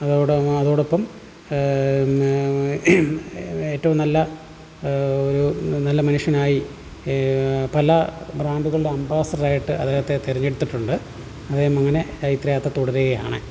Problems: background sounds at intervals, low volume